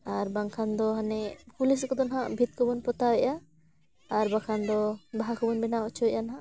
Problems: background sounds at intervals, background conversations at intervals